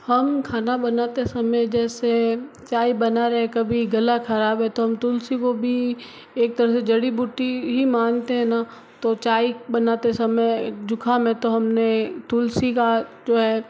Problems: constant background noise